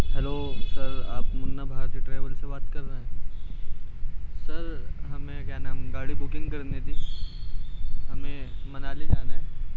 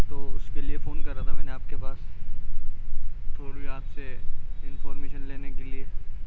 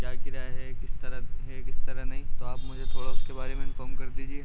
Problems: constant background noise, low volume